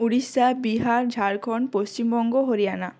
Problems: constant background noise